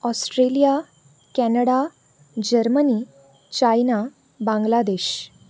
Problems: none marked